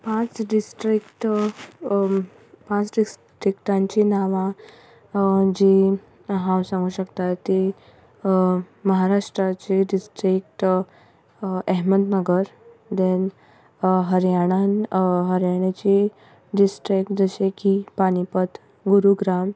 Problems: background sounds at intervals